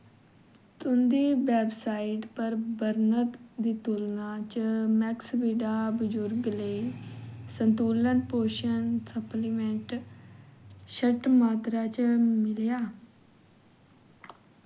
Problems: constant background noise